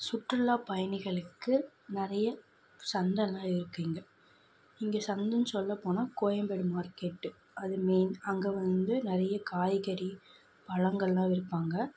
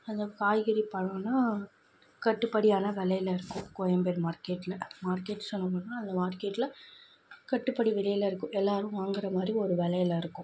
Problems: none marked